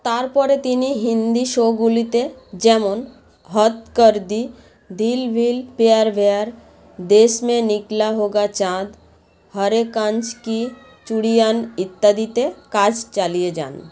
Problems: constant background noise, background conversations at intervals